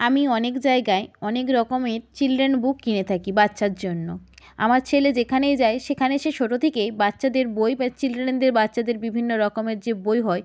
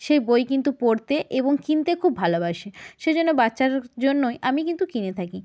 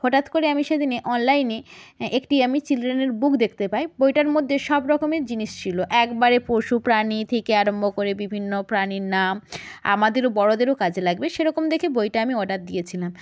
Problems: none marked